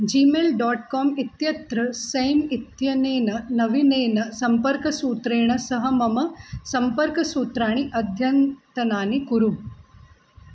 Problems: none marked